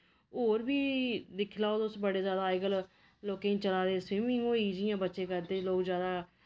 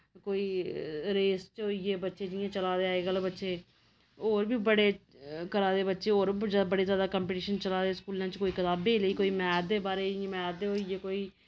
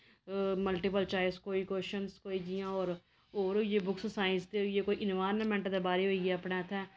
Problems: none marked